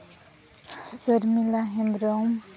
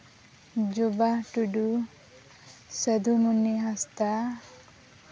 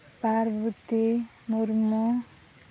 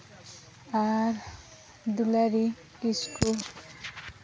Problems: constant background noise